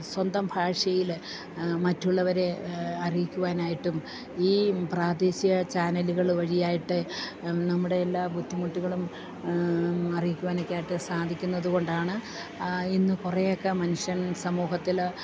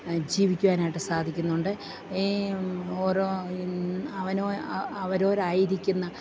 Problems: none marked